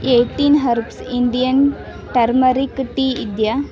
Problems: constant background noise